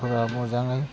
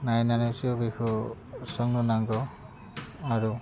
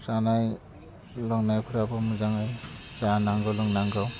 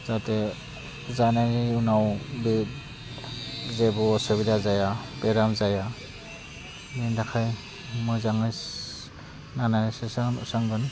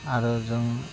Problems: constant background noise